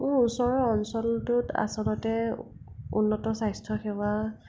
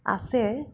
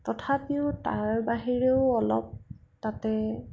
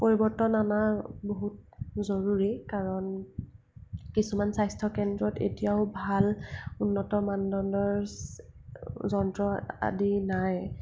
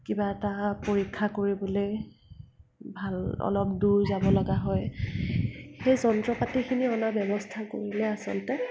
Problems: constant background noise, low volume